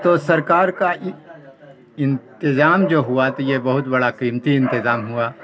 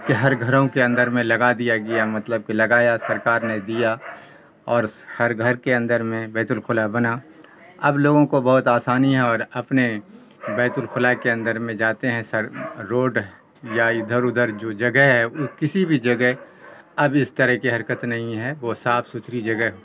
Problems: constant background noise